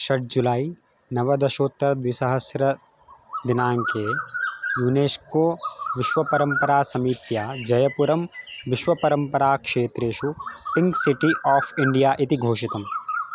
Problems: background sounds at intervals